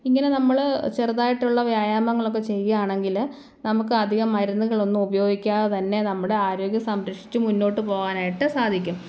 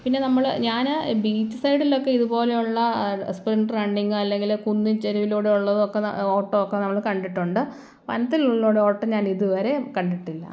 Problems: none marked